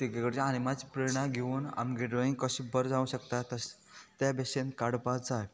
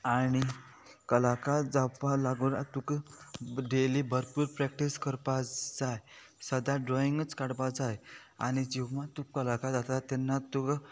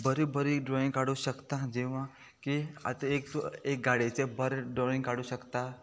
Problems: constant background noise